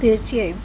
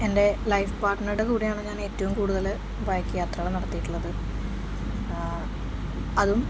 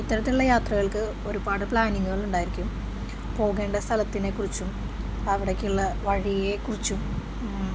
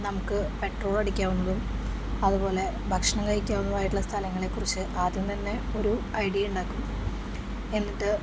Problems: none marked